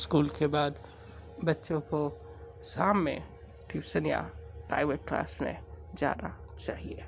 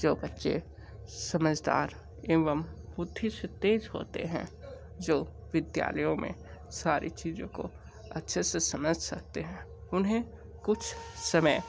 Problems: background sounds at intervals, low volume